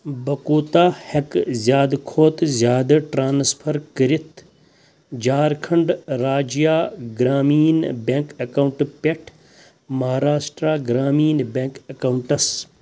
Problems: constant background noise